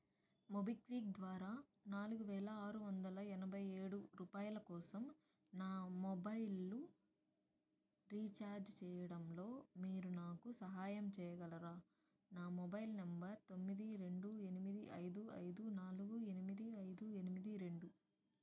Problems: low volume